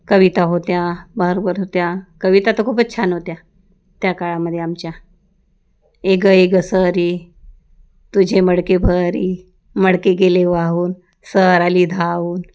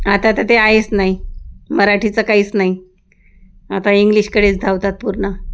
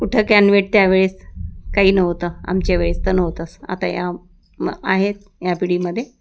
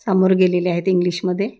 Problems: background sounds at intervals